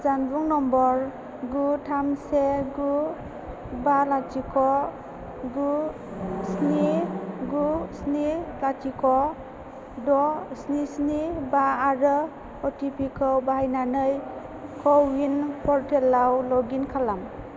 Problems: constant background noise